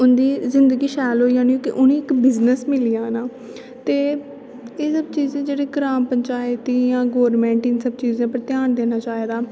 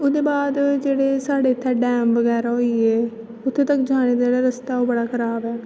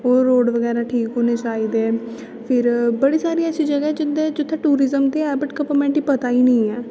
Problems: constant background noise